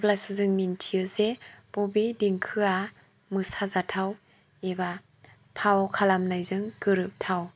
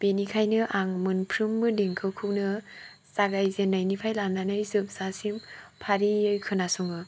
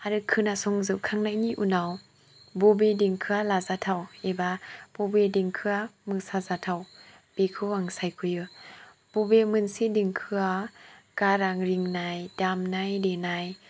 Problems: low volume